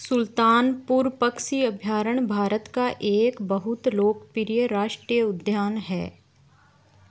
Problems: constant background noise